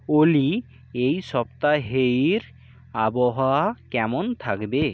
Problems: constant background noise